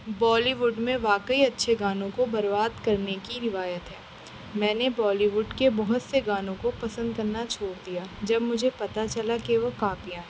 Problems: constant background noise